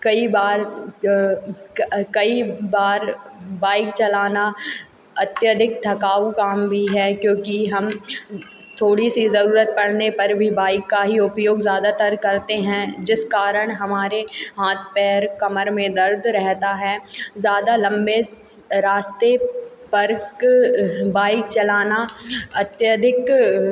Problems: constant background noise